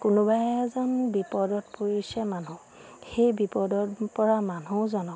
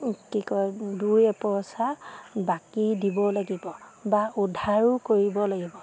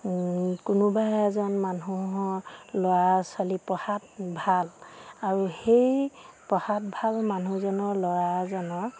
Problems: none marked